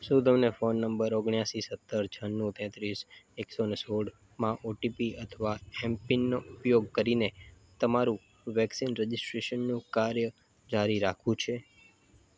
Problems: constant background noise